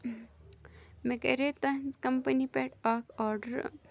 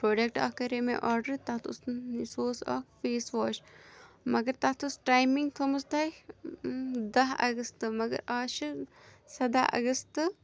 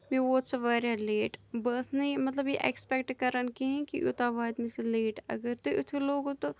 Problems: none marked